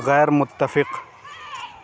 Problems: none marked